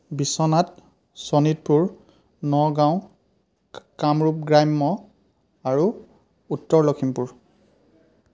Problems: background conversations at intervals